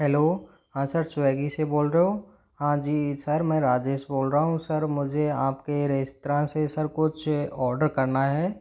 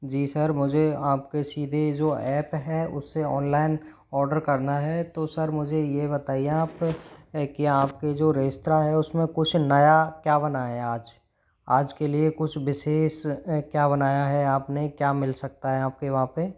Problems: none marked